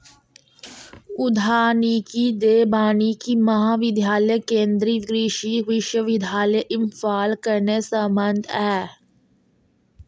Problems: background sounds at intervals